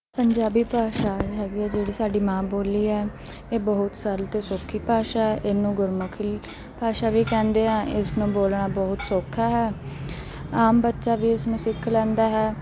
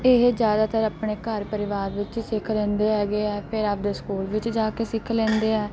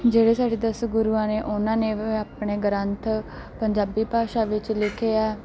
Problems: none marked